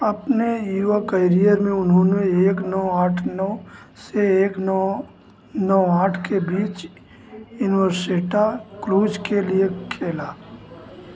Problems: constant background noise